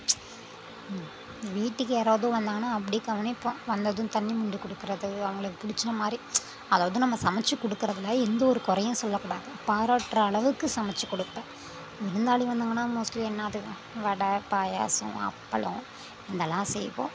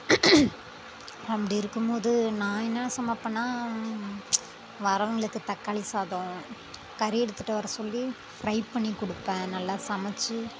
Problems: constant background noise